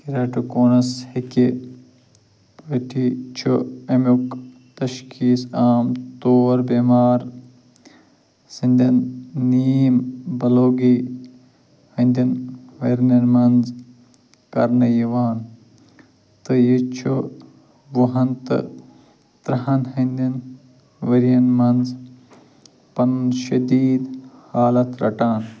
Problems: low volume